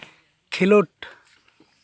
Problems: none marked